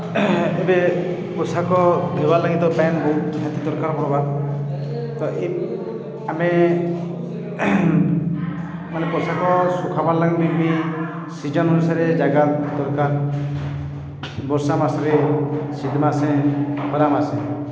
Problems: echo